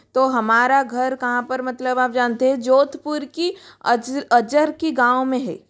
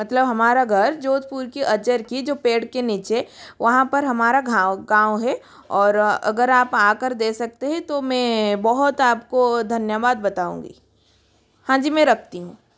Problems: constant background noise